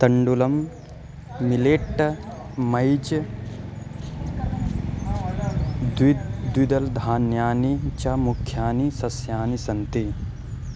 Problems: constant background noise